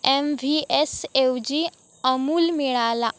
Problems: none marked